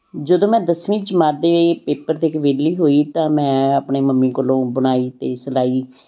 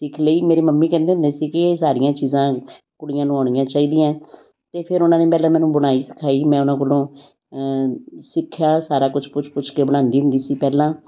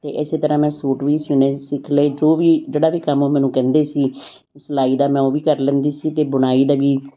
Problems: background sounds at intervals